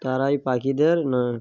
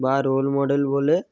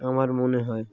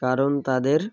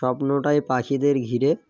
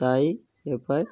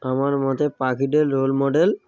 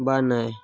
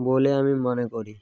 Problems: none marked